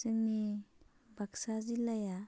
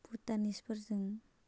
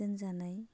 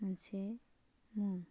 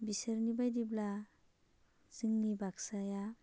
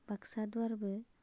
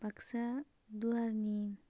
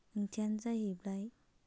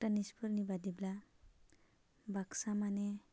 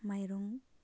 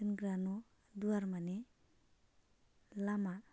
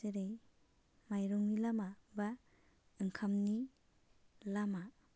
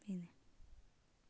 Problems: none marked